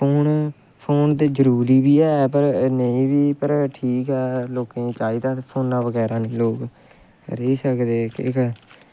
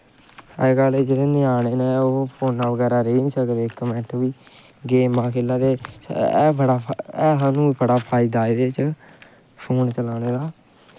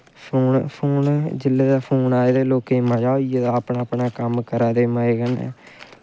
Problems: constant background noise